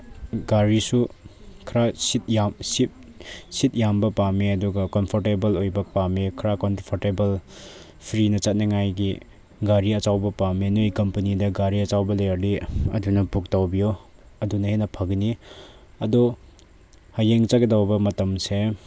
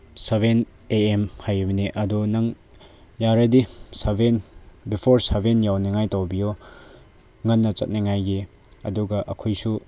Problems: background sounds at intervals